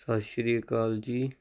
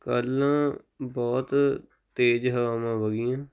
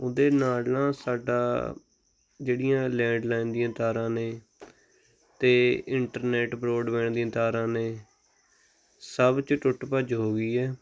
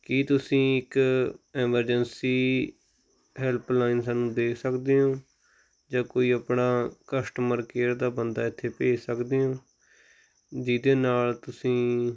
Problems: none marked